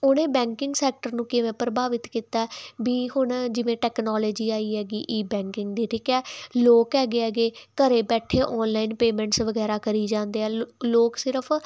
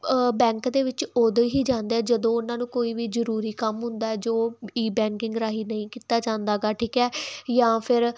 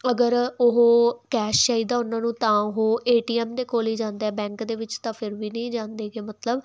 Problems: background sounds at intervals